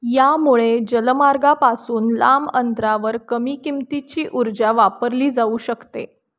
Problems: background sounds at intervals